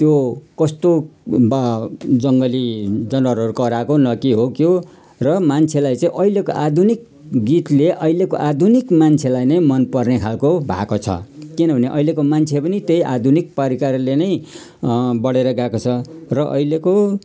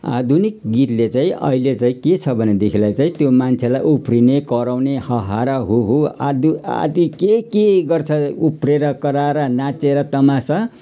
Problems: none marked